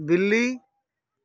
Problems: constant background noise